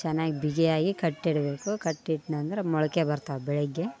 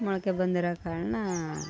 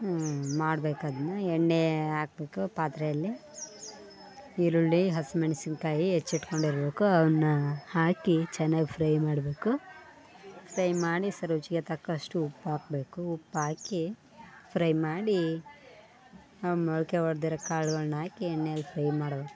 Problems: background conversations at intervals